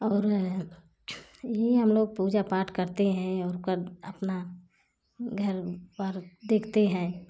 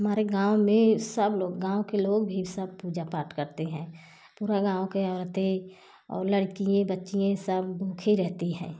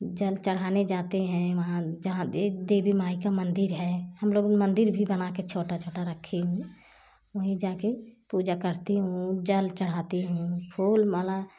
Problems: none marked